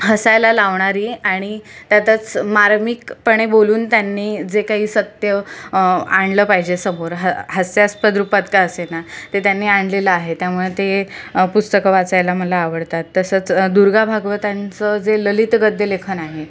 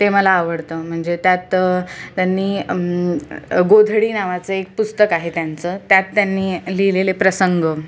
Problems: none marked